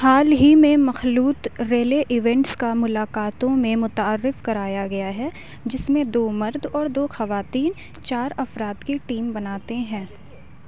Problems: none marked